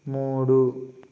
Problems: constant background noise